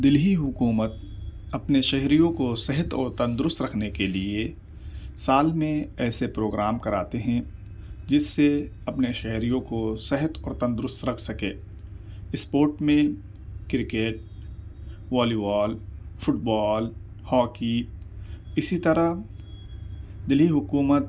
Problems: none marked